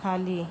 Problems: constant background noise